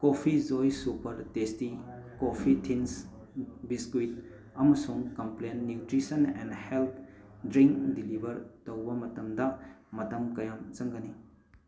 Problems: background sounds at intervals, background conversations at intervals